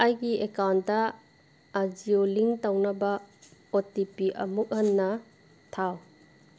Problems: none marked